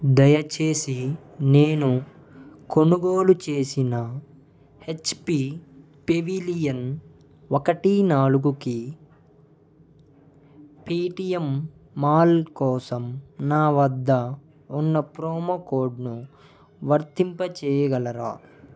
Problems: background sounds at intervals, background conversations at intervals